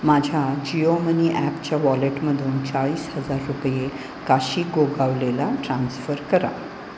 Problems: constant background noise